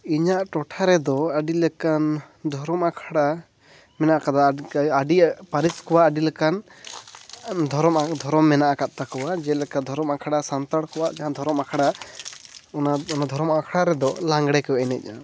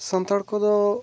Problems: none marked